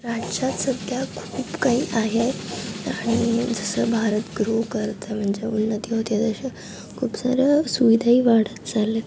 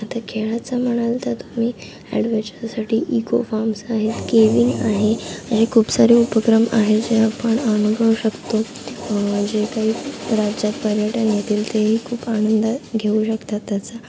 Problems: constant background noise